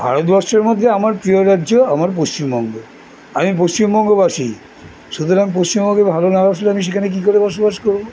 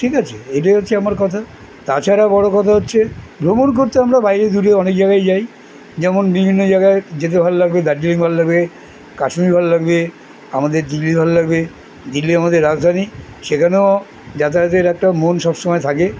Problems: none marked